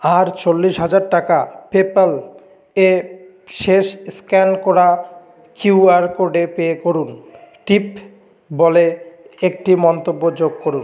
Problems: background sounds at intervals